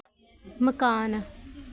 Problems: none marked